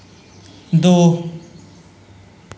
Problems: constant background noise